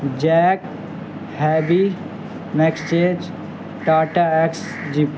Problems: constant background noise